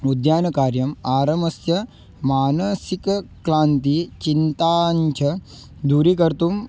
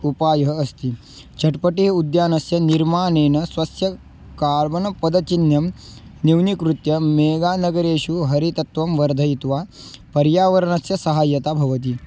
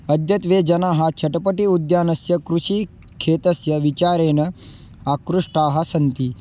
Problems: background sounds at intervals